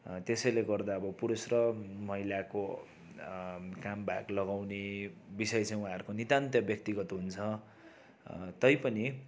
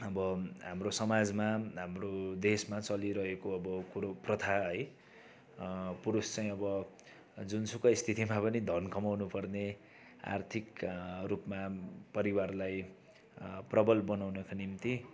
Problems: background sounds at intervals